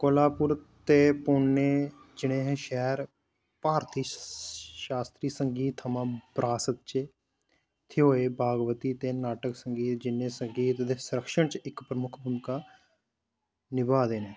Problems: background sounds at intervals